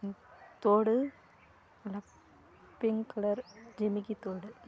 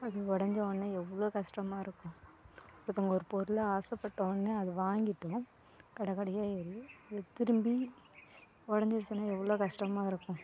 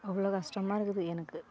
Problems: none marked